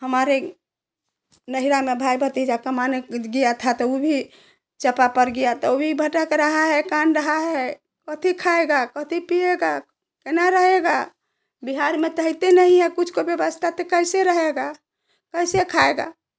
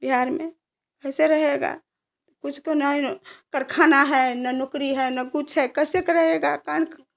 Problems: background sounds at intervals